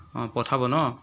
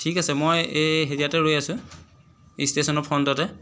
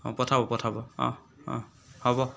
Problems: background sounds at intervals